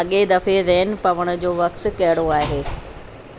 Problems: constant background noise, echo